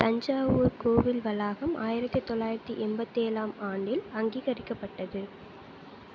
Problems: none marked